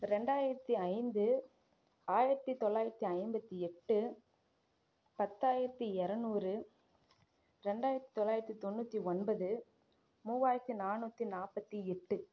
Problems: none marked